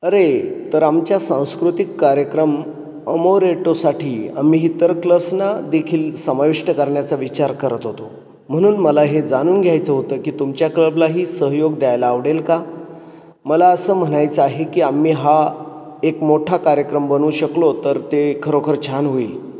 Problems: none marked